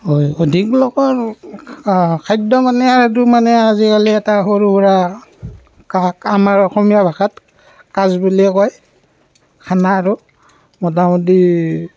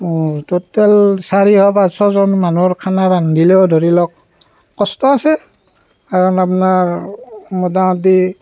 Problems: background sounds at intervals